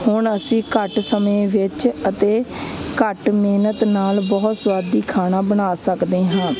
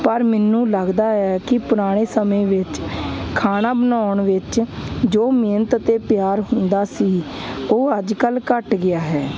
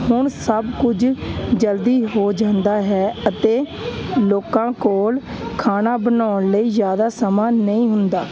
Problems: constant background noise